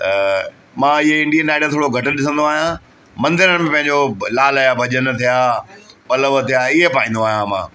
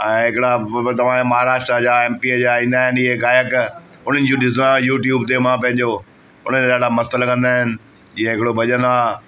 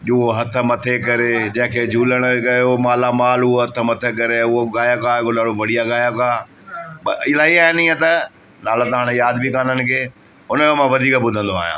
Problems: constant background noise, echo